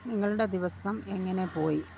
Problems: low volume